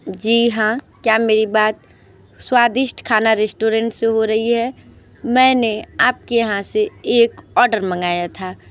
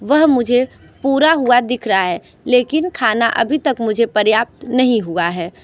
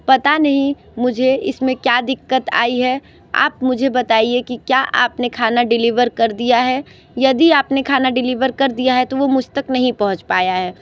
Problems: background sounds at intervals